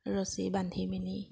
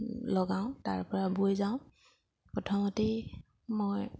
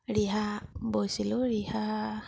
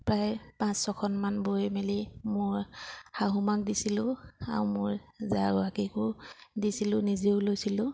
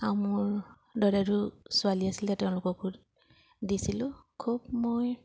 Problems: background sounds at intervals